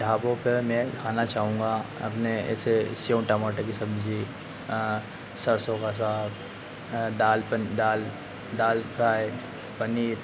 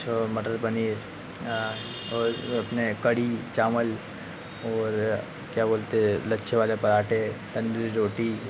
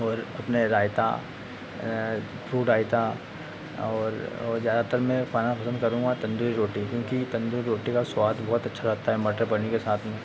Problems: constant background noise